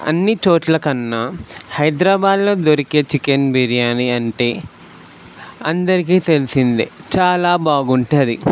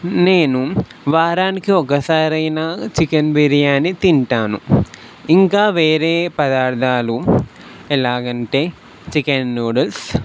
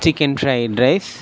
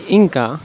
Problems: none marked